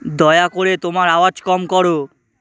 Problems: constant background noise